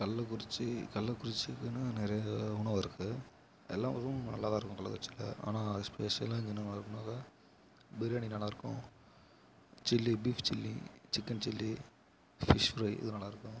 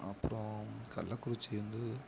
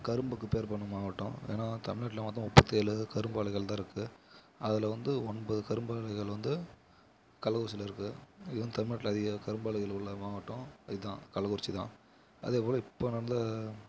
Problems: background sounds at intervals